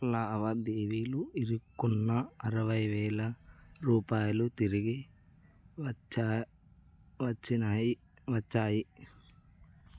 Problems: low volume